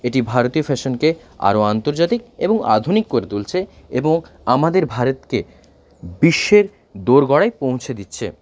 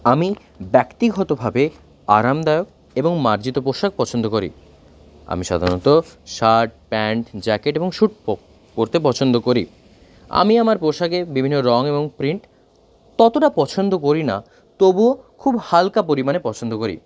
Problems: background sounds at intervals